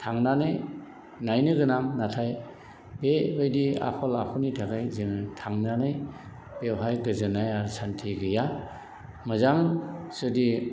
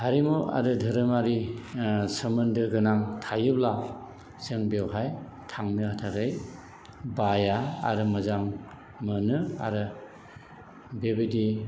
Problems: background sounds at intervals, background conversations at intervals